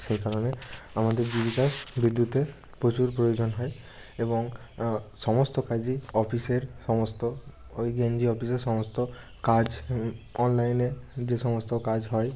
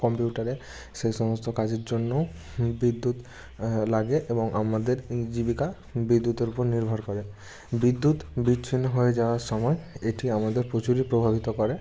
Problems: background sounds at intervals